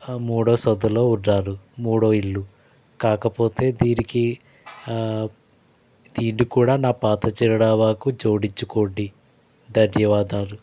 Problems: background sounds at intervals